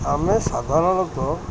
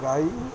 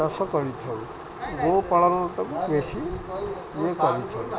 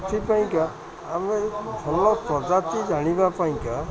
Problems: constant background noise, continuous background conversations